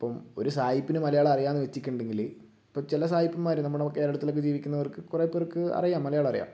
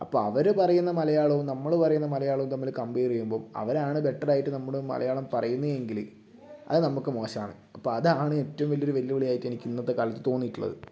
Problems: low volume